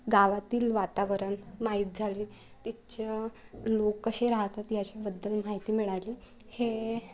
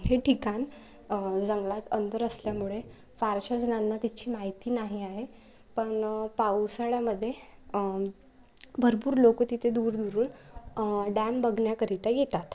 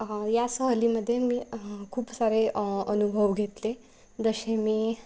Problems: none marked